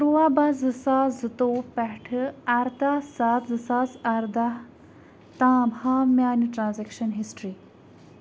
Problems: constant background noise